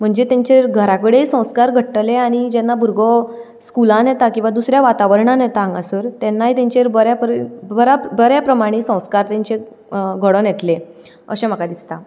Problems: background sounds at intervals